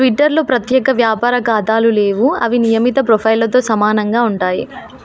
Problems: none marked